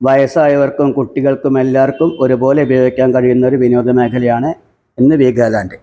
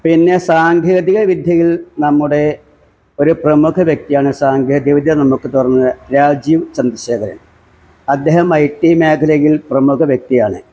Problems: background sounds at intervals